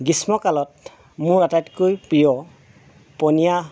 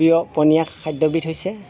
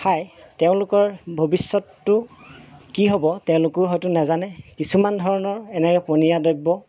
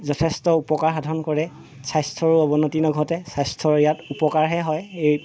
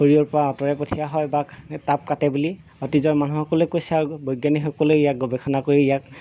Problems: none marked